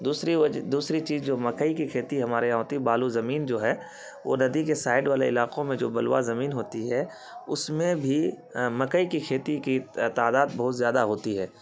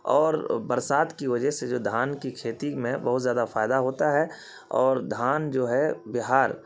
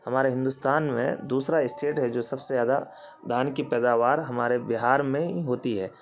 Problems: constant background noise